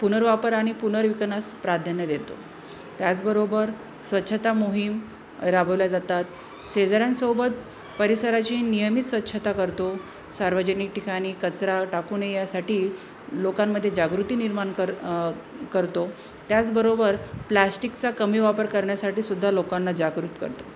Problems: constant background noise, background conversations at intervals